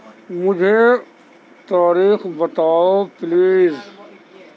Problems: constant background noise, continuous background conversations